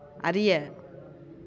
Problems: none marked